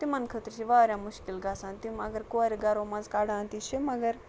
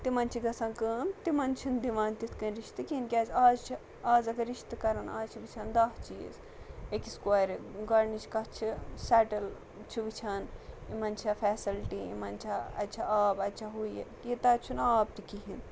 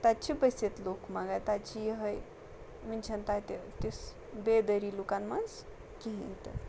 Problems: background sounds at intervals